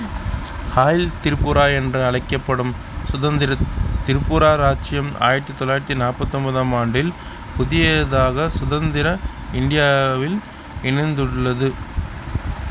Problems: constant background noise, background conversations at intervals